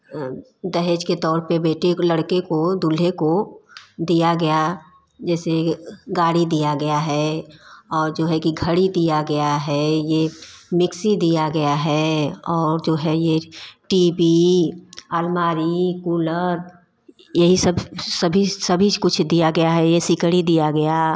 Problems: background sounds at intervals